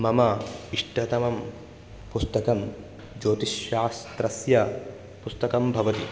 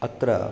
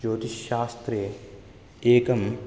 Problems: background sounds at intervals